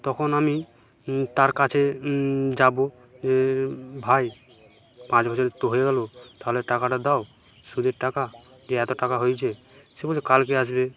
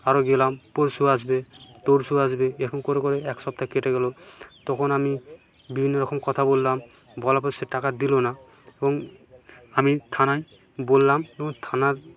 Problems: background sounds at intervals, background conversations at intervals